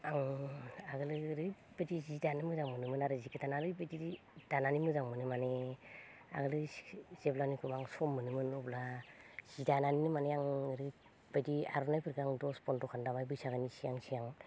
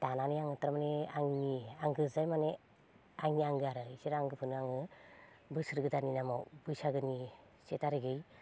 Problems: low volume